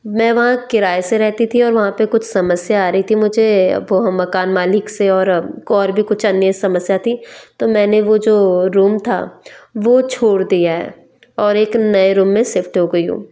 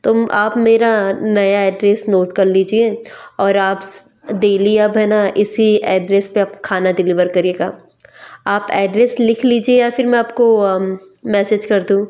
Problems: background sounds at intervals